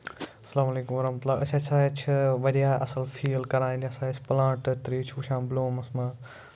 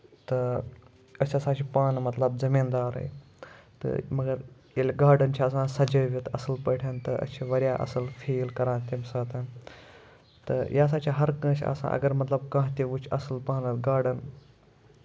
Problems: none marked